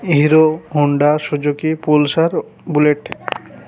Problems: constant background noise, continuous background conversations